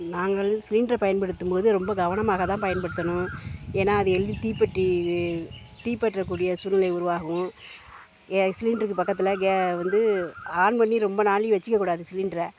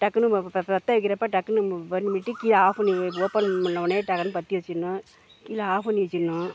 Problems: background sounds at intervals